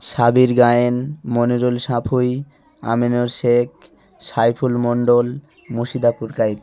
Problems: none marked